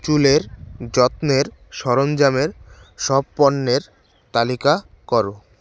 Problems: constant background noise